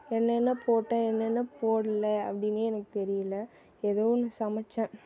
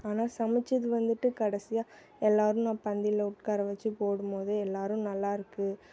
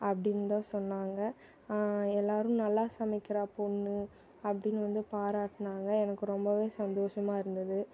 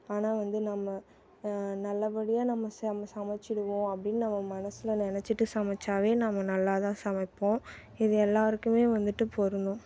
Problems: background sounds at intervals